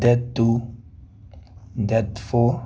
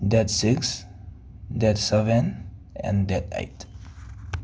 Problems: background sounds at intervals